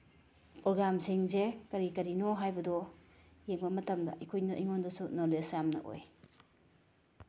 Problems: background sounds at intervals